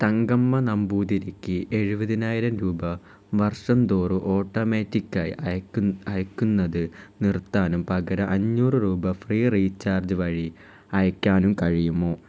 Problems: none marked